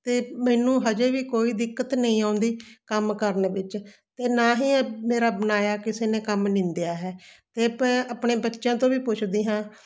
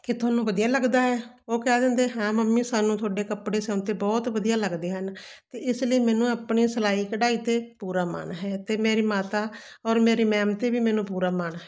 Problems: constant background noise